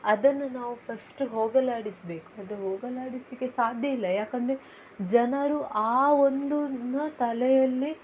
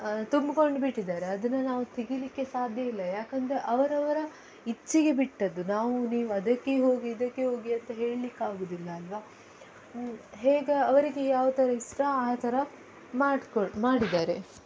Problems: background sounds at intervals